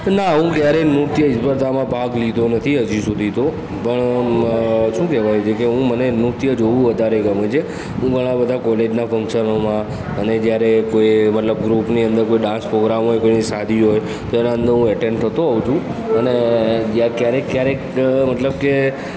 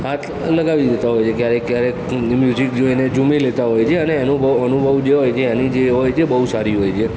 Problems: background sounds at intervals, continuous background conversations